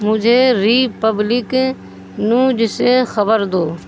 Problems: constant background noise